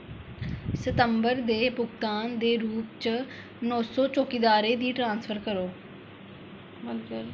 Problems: constant background noise